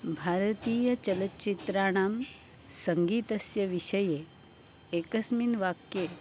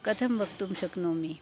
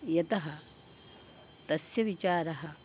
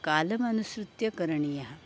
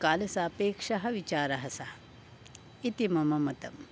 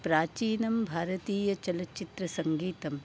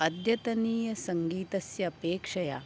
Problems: background sounds at intervals